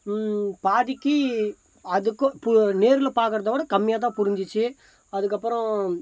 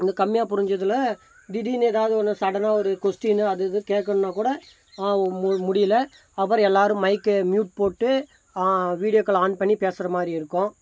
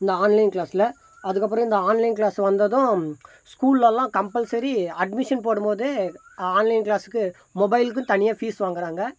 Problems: constant background noise